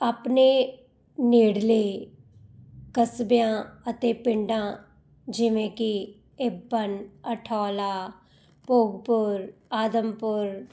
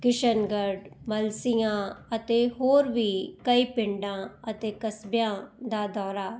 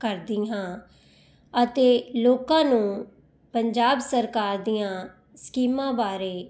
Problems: none marked